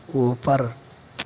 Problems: background sounds at intervals